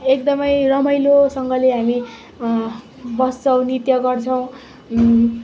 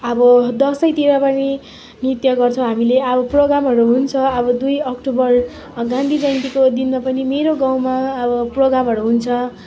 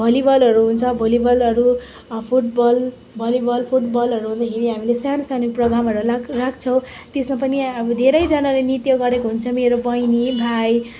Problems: constant background noise, continuous background conversations